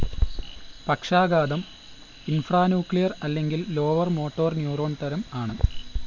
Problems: background sounds at intervals